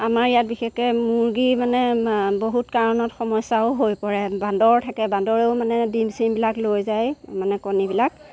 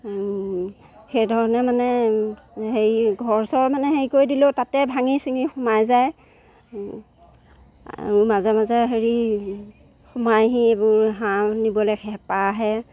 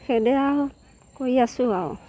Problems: background sounds at intervals